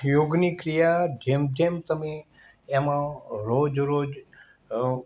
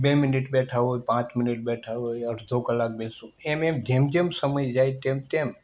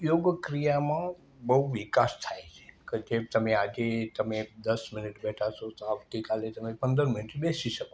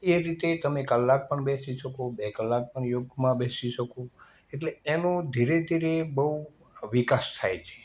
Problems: background sounds at intervals